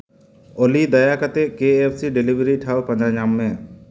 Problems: constant background noise, echo